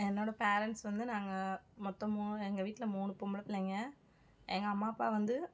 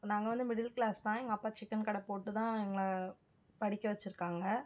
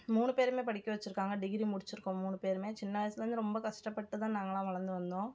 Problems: background sounds at intervals